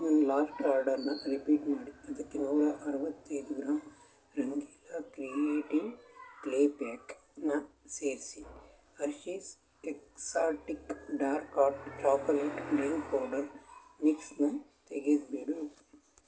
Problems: constant background noise